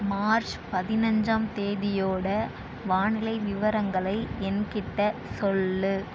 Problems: constant background noise